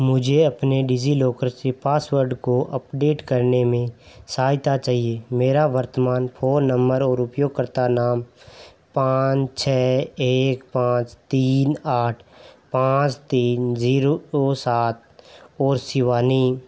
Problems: none marked